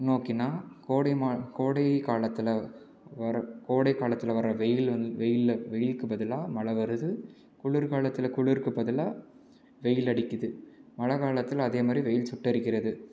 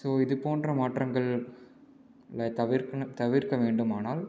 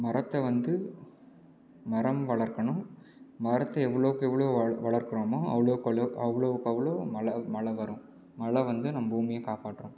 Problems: low volume